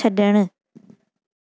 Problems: none marked